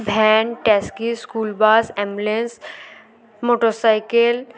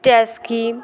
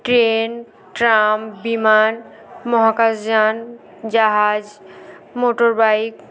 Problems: none marked